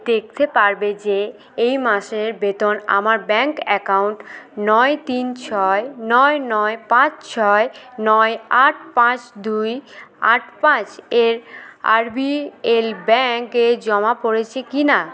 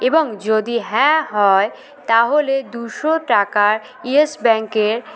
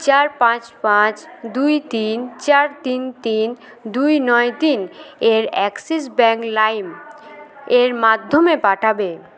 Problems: continuous background conversations